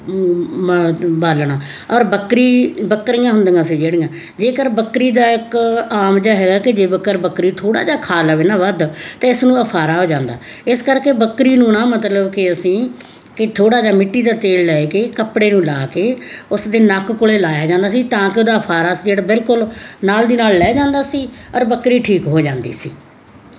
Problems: none marked